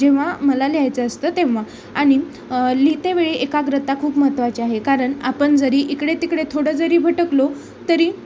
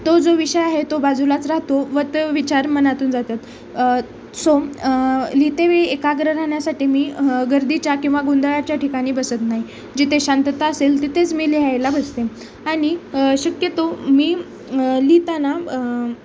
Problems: constant background noise, background conversations at intervals